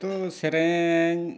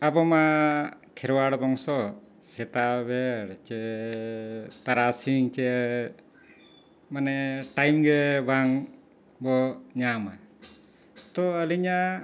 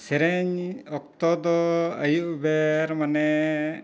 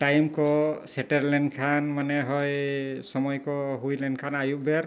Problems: none marked